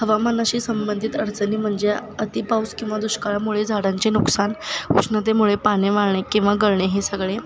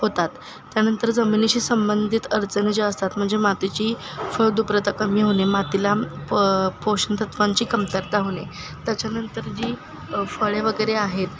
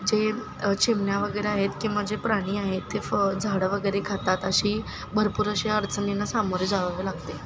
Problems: constant background noise, continuous background conversations